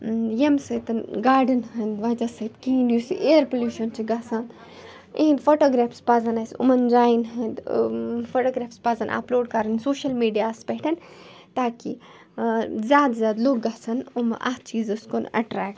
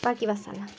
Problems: constant background noise